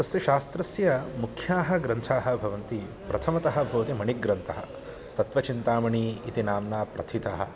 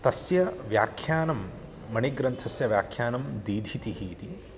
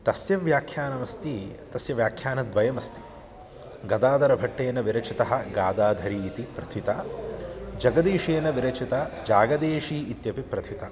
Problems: none marked